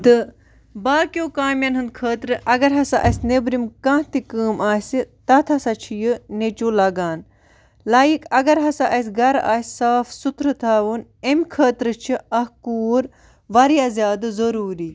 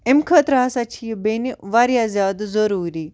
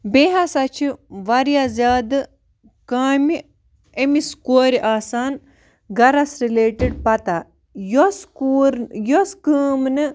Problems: background sounds at intervals